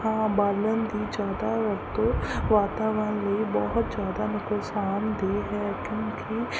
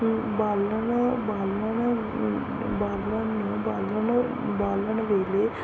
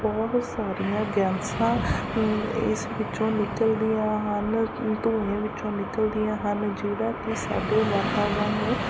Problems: constant background noise